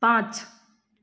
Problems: none marked